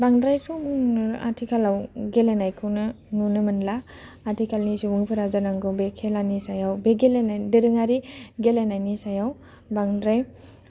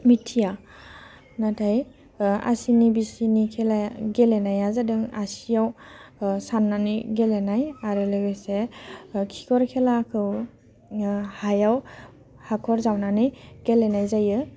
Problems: low volume